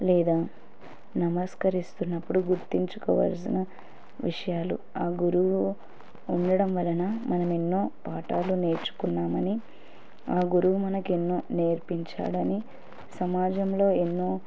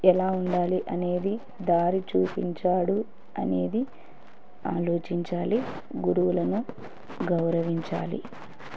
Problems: background sounds at intervals